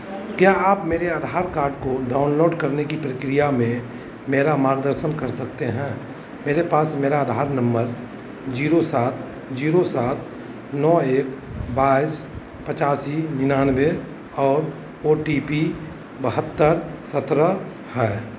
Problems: constant background noise